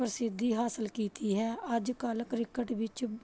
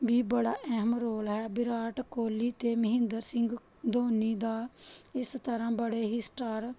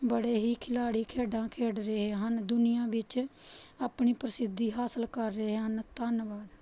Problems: background sounds at intervals